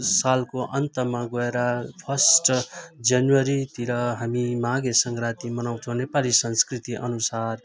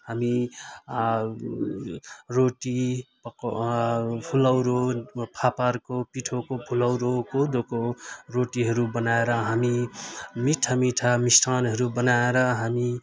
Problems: none marked